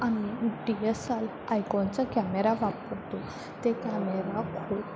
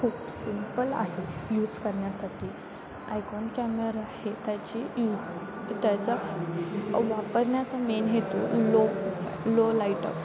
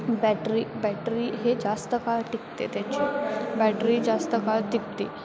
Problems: constant background noise, continuous background conversations